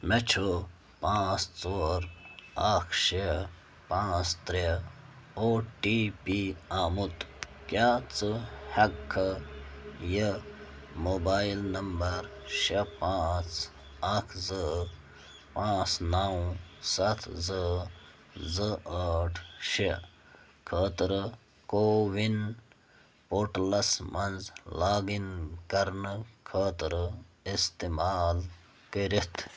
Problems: none marked